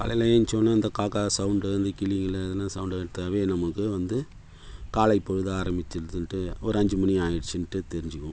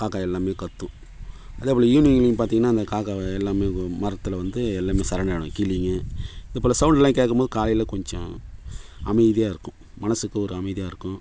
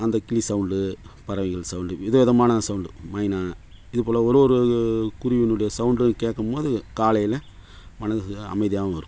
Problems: none marked